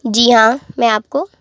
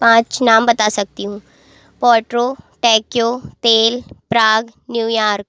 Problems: constant background noise